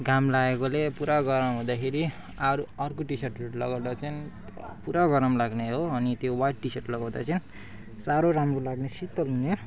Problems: background sounds at intervals